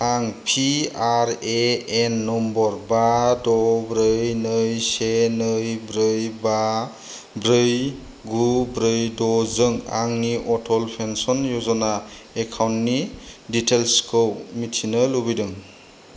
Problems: low volume